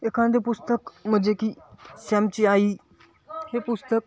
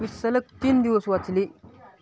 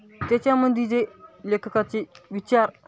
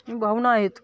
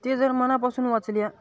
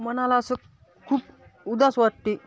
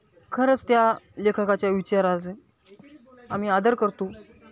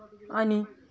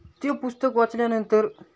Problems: none marked